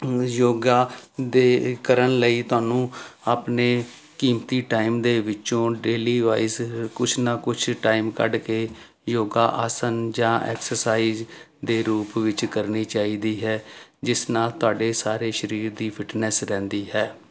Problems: constant background noise